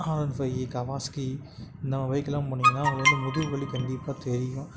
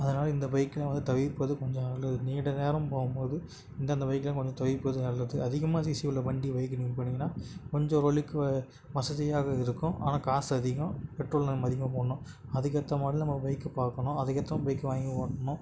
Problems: background sounds at intervals